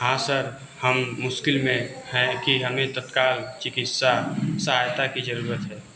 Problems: constant background noise